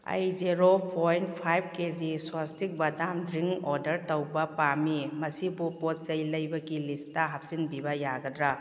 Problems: none marked